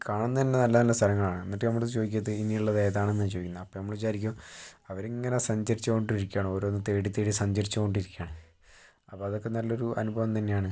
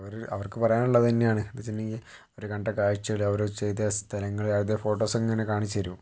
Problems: low volume